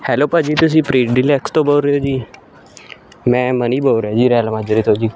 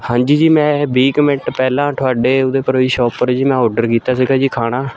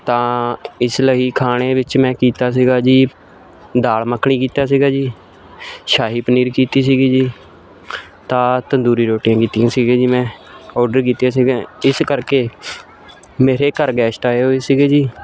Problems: none marked